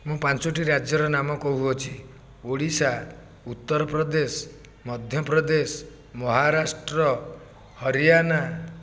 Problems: none marked